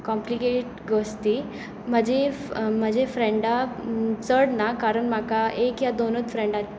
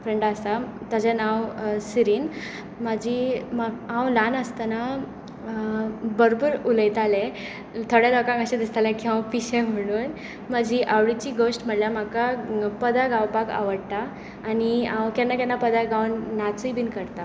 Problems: constant background noise